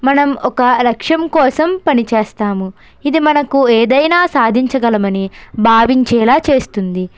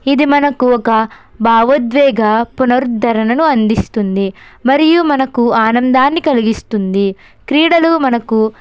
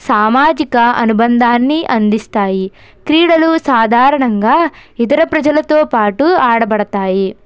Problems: none marked